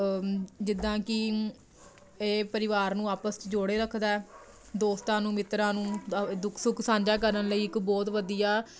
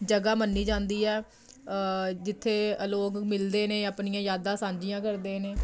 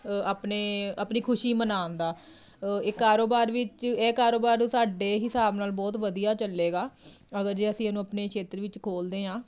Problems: none marked